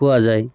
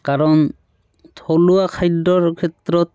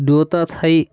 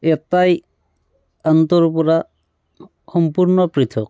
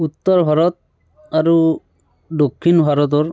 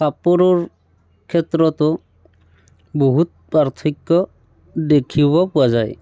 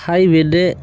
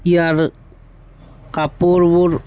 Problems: background sounds at intervals